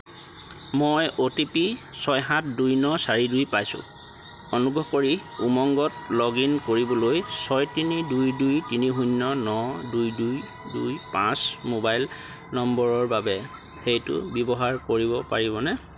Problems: none marked